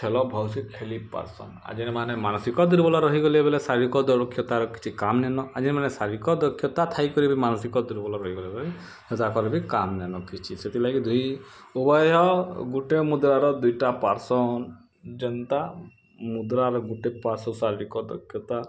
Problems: background sounds at intervals